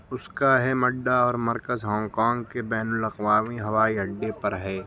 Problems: constant background noise